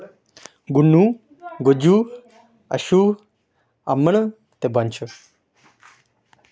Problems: none marked